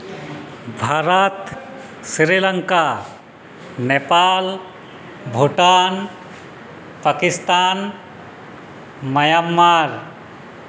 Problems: constant background noise